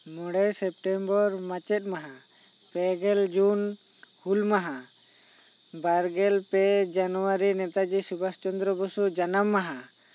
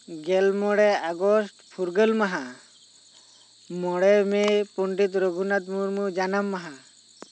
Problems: constant background noise